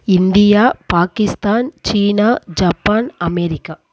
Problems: none marked